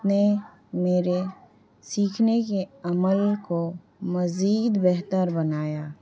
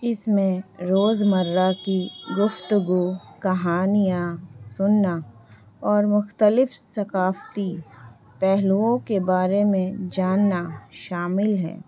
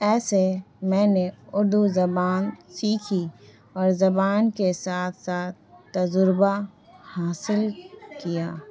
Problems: constant background noise, low volume